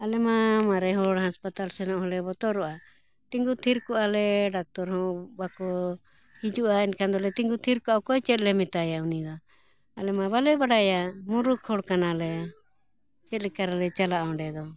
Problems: background sounds at intervals